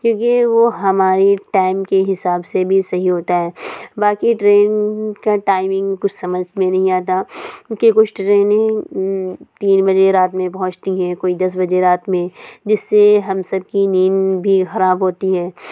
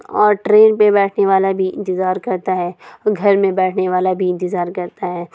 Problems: constant background noise, low volume